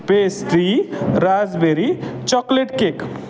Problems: none marked